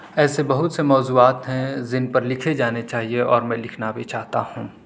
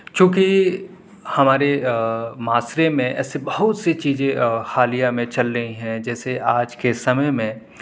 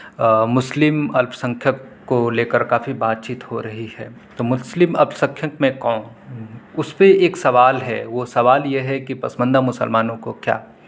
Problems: none marked